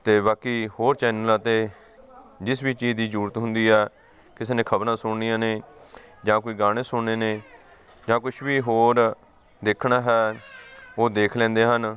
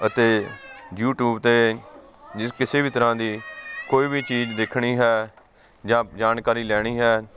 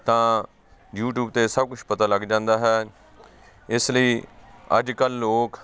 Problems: constant background noise, continuous background conversations